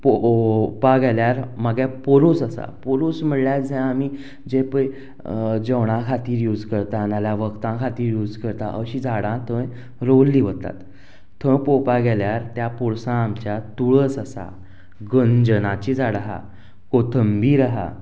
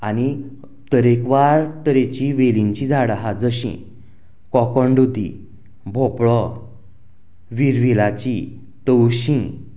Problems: background sounds at intervals